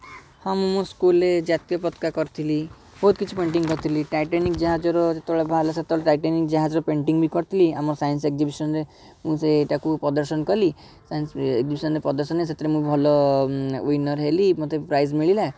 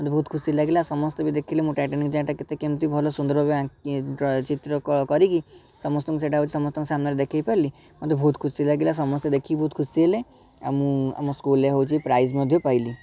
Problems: background conversations at intervals